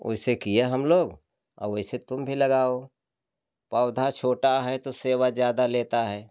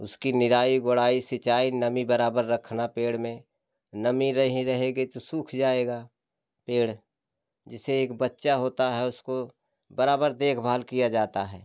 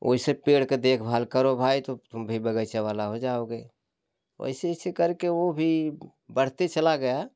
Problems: none marked